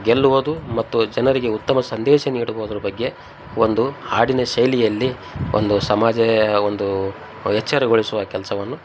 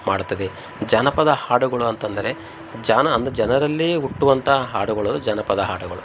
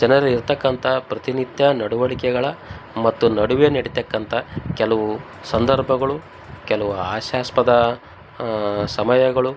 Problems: background sounds at intervals